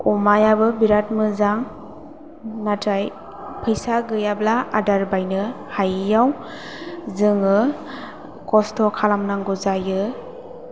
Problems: none marked